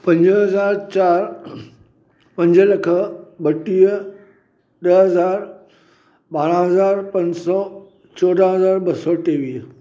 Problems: none marked